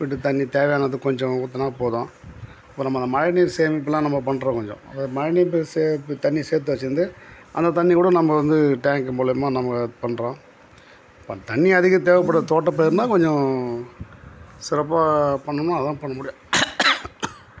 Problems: background sounds at intervals